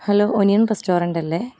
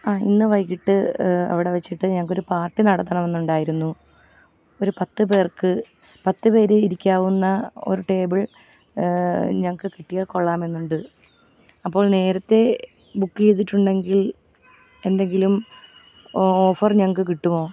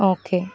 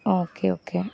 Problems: background sounds at intervals